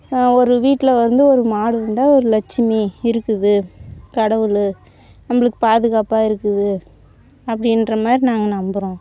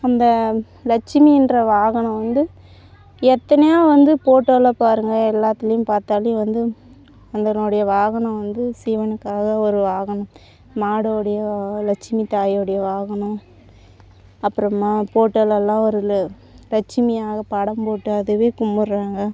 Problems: background sounds at intervals